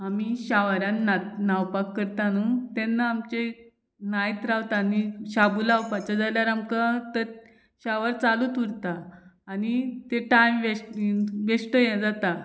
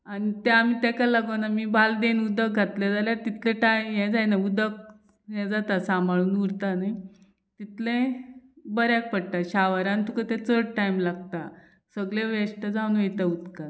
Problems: none marked